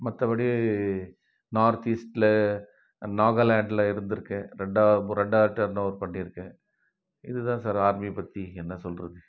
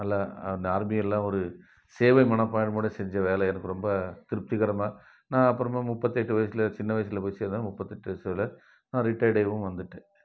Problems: none marked